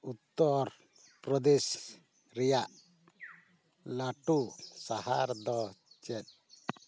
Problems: none marked